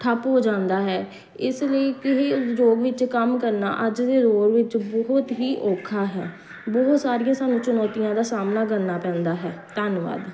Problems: none marked